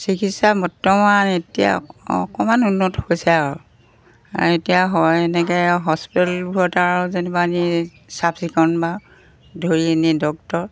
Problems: constant background noise